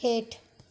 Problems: background sounds at intervals